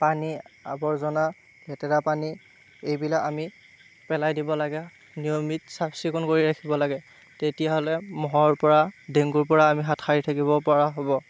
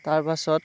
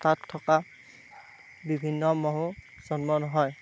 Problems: none marked